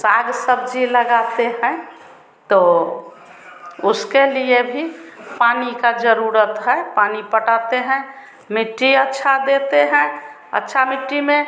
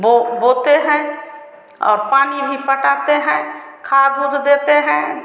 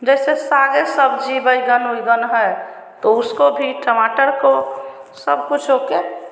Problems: constant background noise